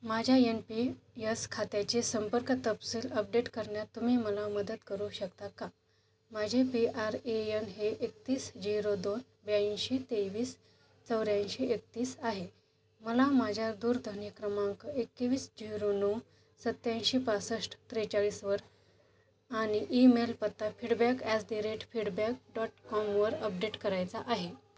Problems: background sounds at intervals